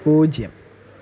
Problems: constant background noise, low volume